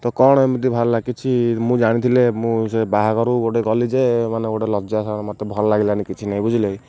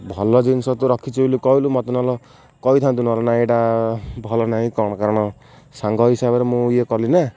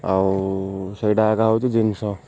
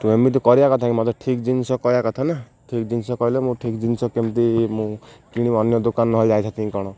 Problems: none marked